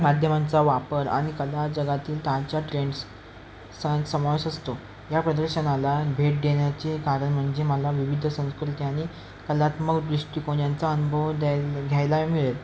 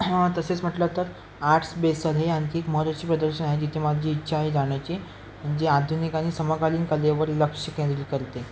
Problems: constant background noise, continuous background conversations